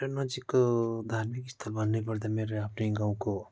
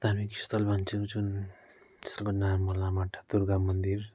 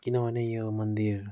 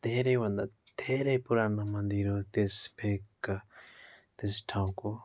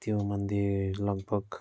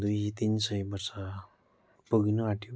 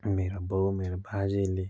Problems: constant background noise